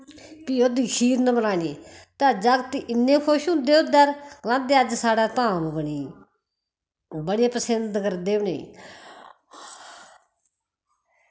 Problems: constant background noise